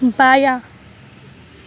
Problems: constant background noise